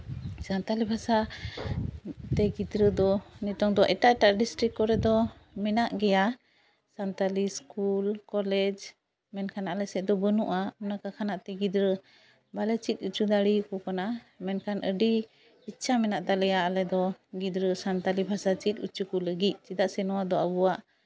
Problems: background sounds at intervals